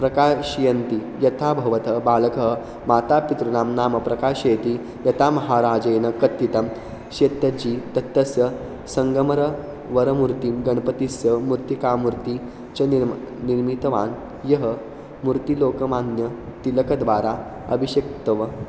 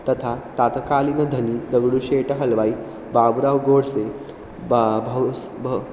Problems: constant background noise